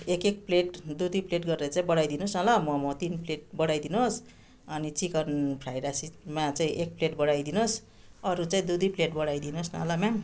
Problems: constant background noise